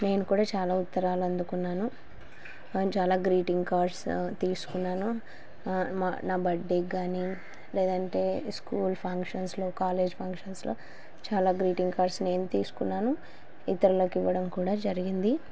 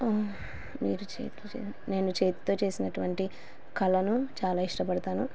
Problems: constant background noise